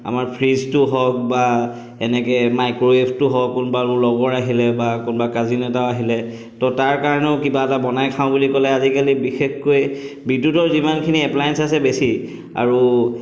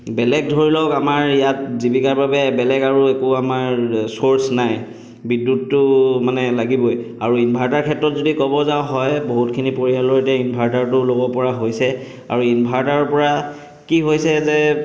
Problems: background sounds at intervals, echo